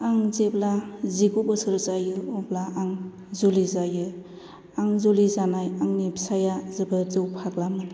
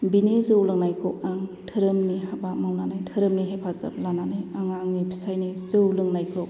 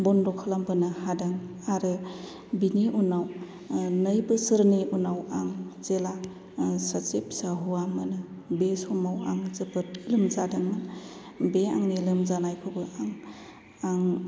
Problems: low volume